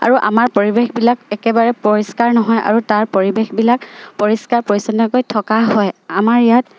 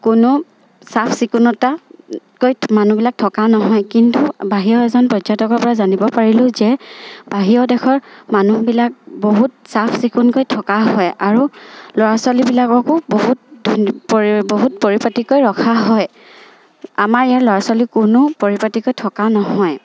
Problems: none marked